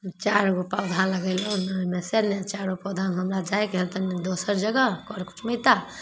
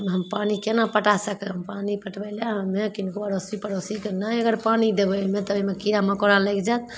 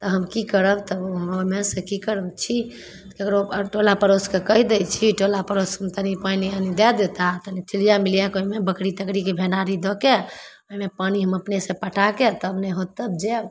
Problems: none marked